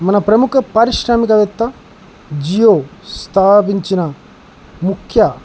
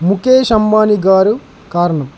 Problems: constant background noise